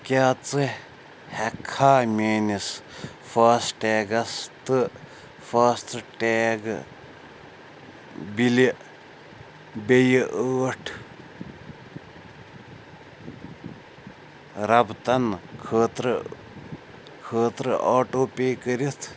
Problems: background sounds at intervals